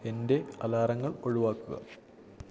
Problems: low volume